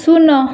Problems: constant background noise